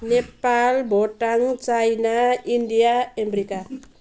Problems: background sounds at intervals